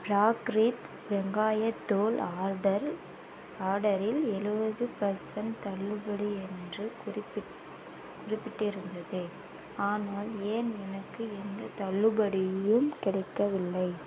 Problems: constant background noise